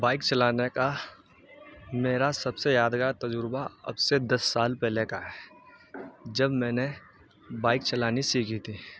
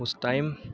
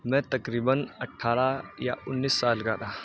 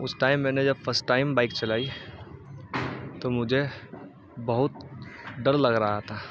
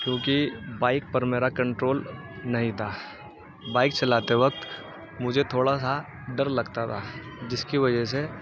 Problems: constant background noise, background conversations at intervals